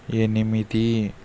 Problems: constant background noise